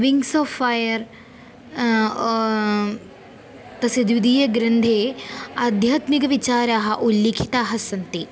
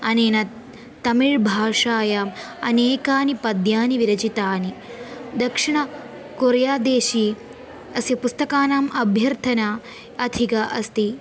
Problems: constant background noise